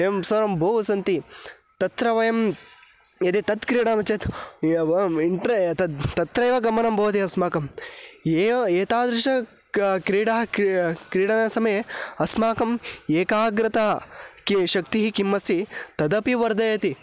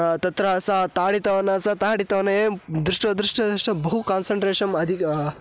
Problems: background sounds at intervals